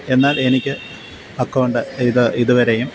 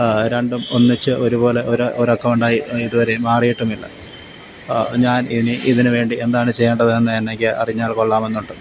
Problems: none marked